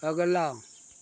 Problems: constant background noise